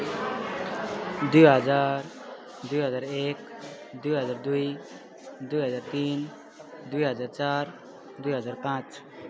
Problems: continuous background conversations